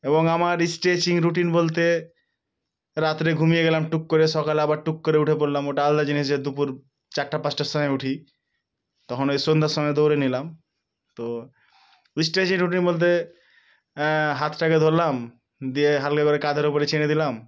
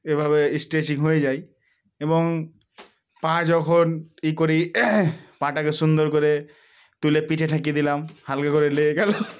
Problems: background sounds at intervals